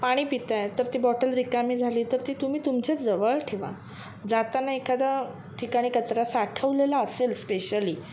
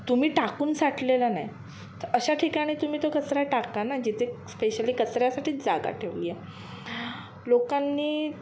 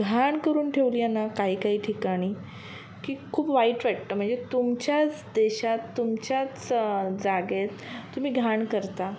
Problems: none marked